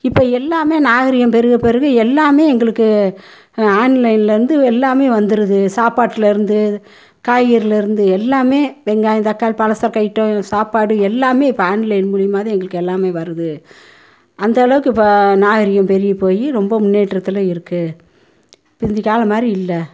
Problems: none marked